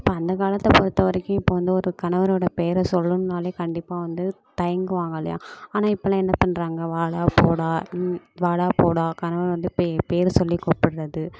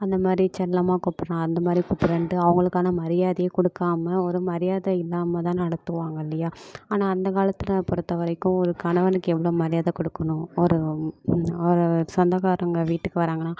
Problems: constant background noise